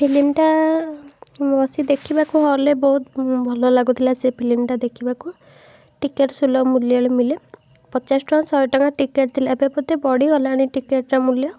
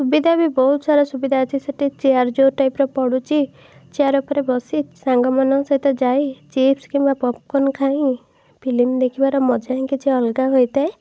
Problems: none marked